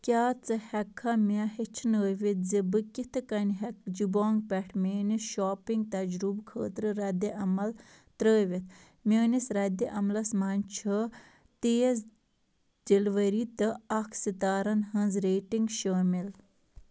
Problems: none marked